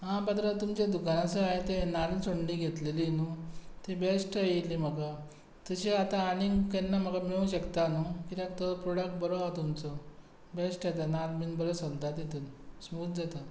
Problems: constant background noise